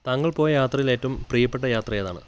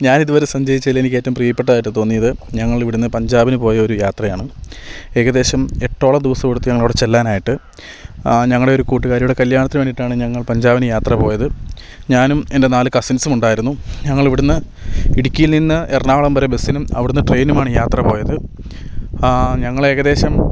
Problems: none marked